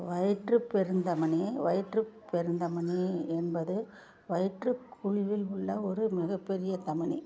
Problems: low volume